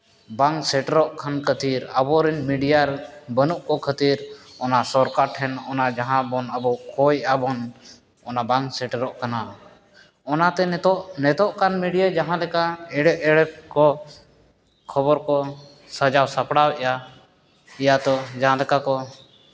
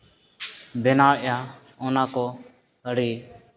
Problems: none marked